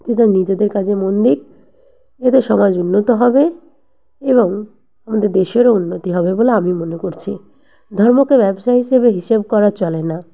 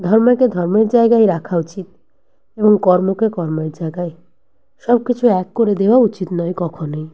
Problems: none marked